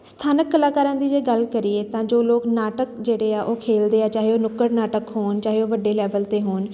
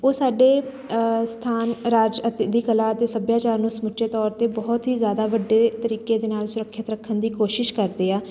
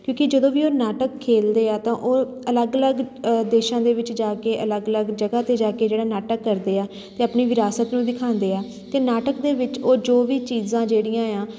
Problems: constant background noise